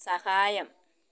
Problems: none marked